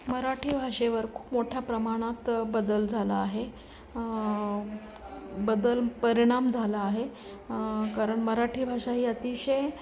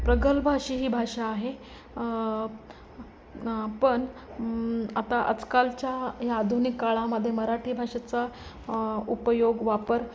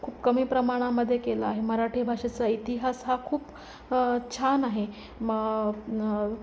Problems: constant background noise, continuous background conversations